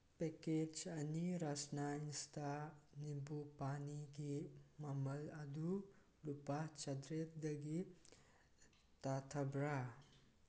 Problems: none marked